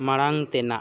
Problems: constant background noise